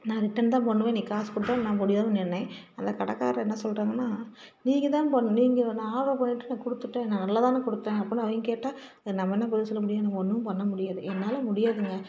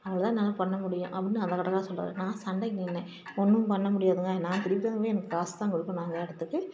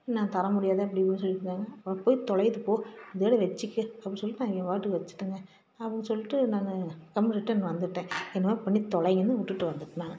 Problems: low volume